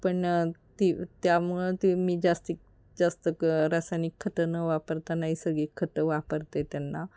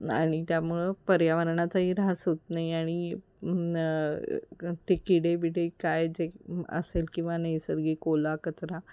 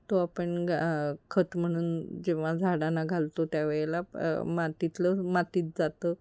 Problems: none marked